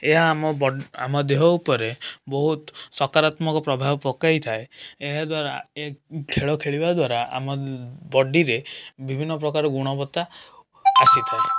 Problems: constant background noise